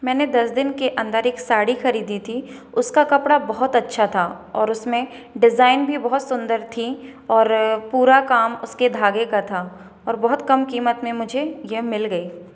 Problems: background sounds at intervals